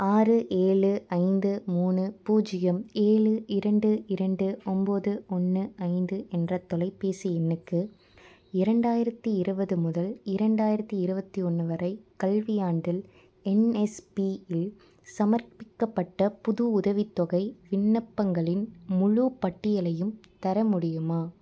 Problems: none marked